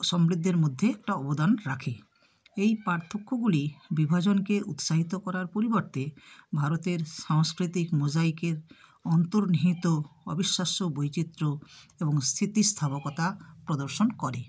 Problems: none marked